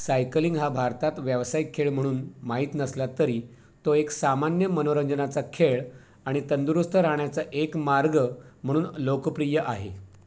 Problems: background sounds at intervals